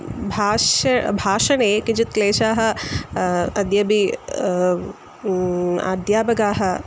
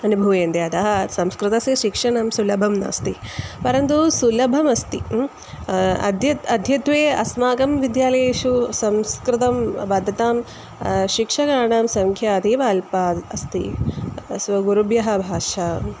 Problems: constant background noise